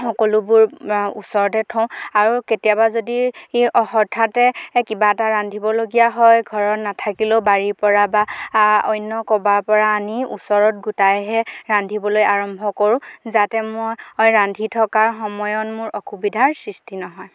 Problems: none marked